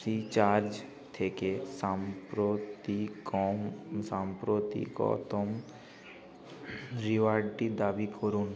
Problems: none marked